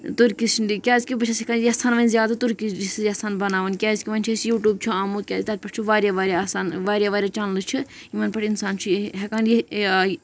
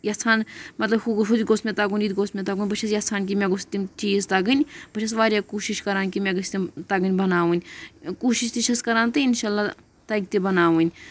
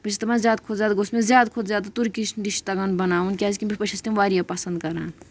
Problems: none marked